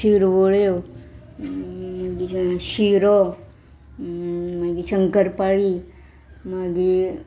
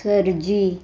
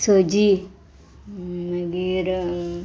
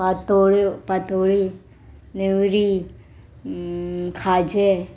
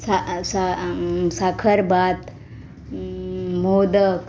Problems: background sounds at intervals